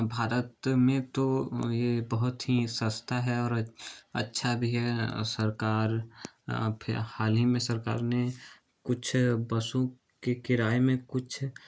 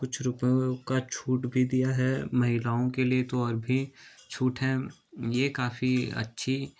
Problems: none marked